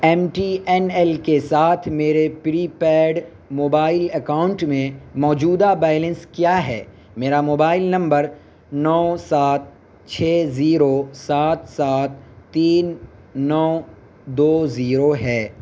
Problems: constant background noise